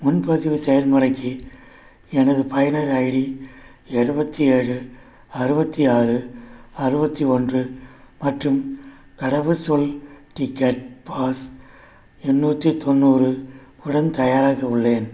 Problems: none marked